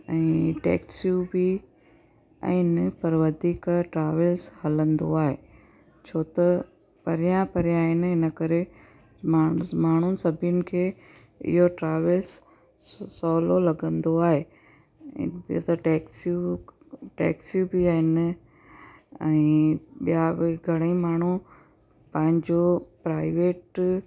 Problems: constant background noise